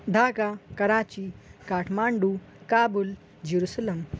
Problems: constant background noise